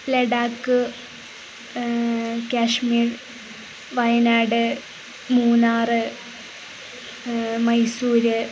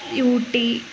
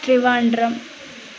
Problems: constant background noise